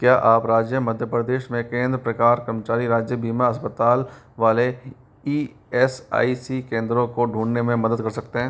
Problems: constant background noise